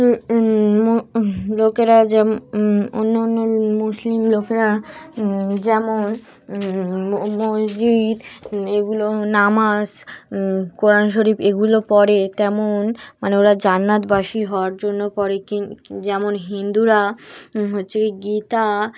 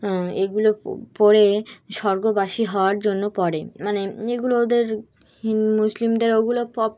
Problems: constant background noise, continuous background conversations